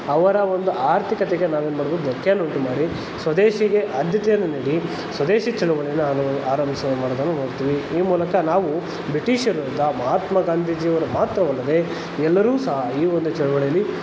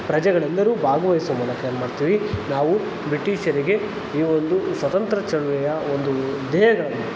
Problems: constant background noise